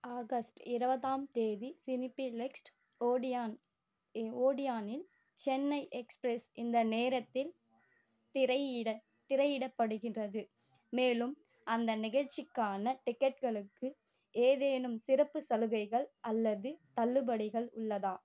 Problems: constant background noise